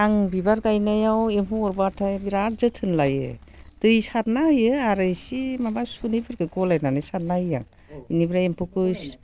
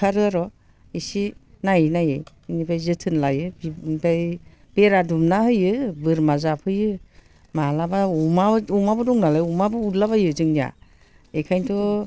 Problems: constant background noise